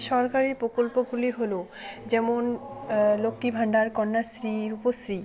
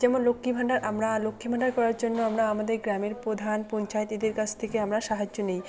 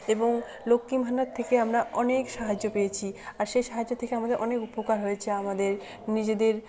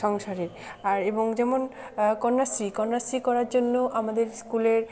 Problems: background sounds at intervals, continuous background conversations